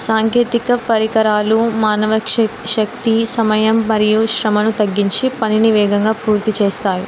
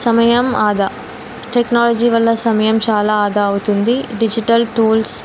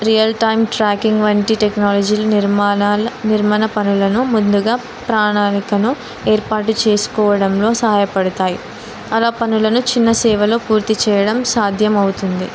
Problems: none marked